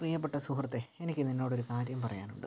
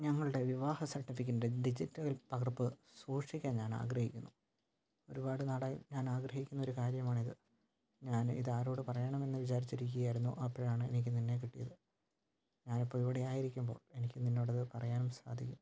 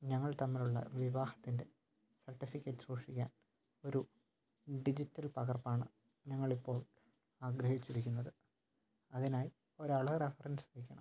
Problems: low volume